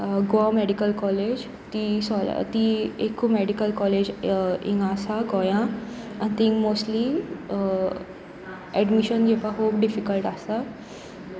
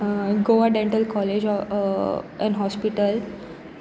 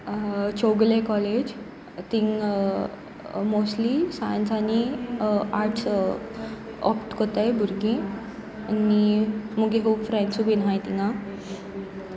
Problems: background sounds at intervals